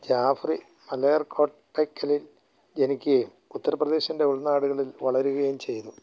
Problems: low volume